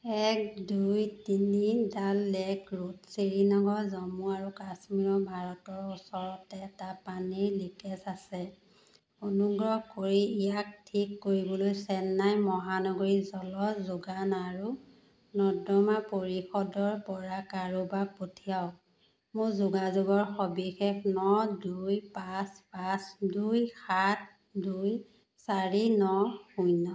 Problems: none marked